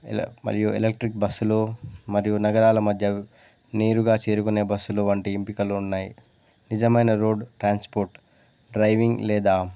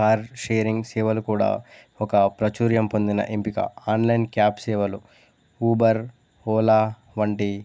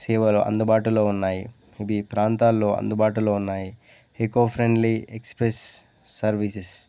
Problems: none marked